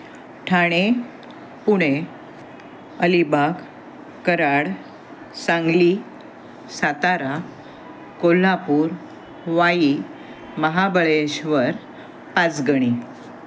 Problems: constant background noise, background conversations at intervals